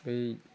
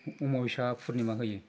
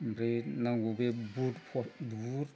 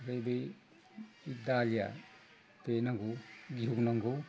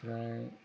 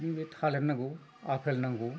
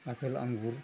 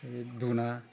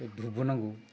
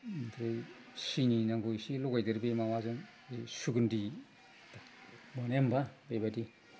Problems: low volume